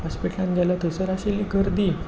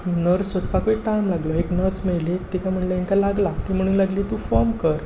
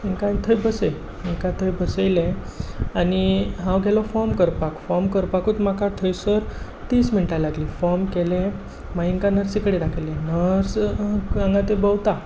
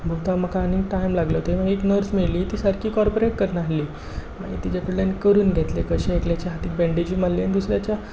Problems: constant background noise